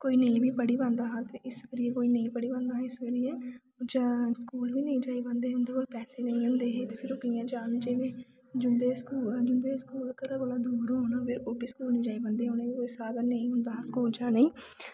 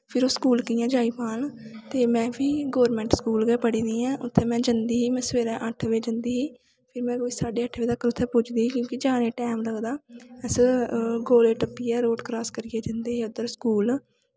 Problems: background sounds at intervals, low volume